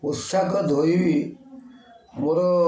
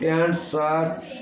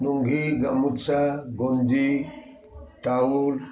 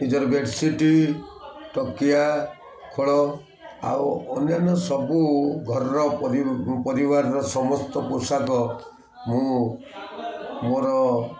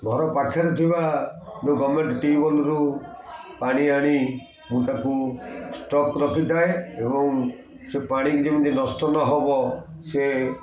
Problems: constant background noise, continuous background conversations